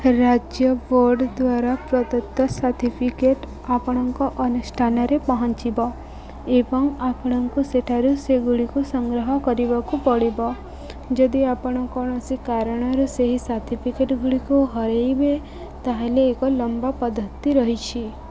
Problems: constant background noise